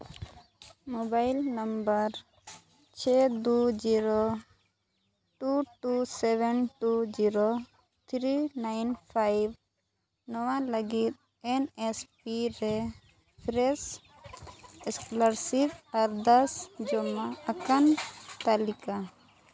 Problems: background conversations at intervals